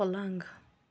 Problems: background sounds at intervals